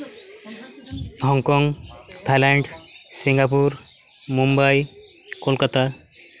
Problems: constant background noise